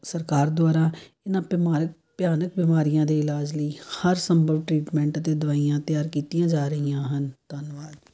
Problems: none marked